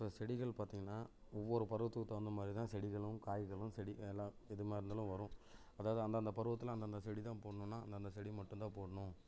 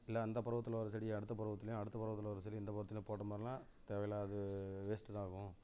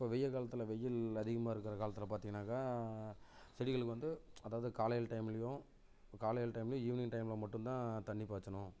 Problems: none marked